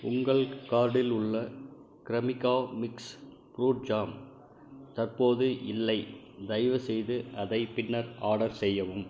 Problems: none marked